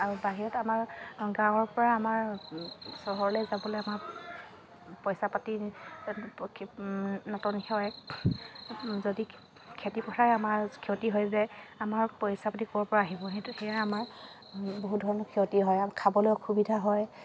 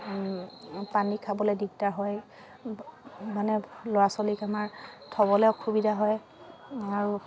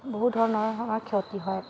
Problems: none marked